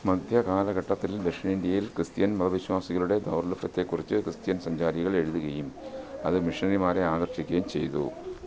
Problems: background sounds at intervals